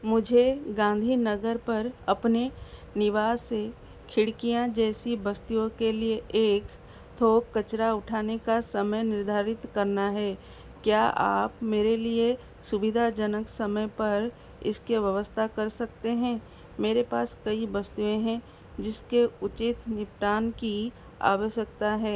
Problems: constant background noise